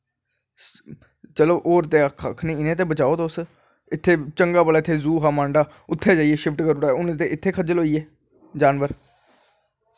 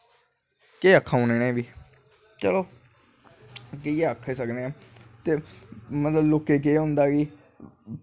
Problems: constant background noise